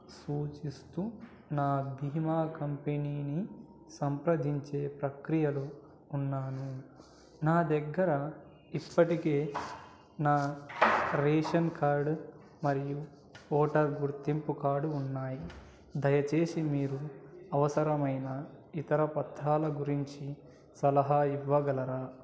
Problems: low volume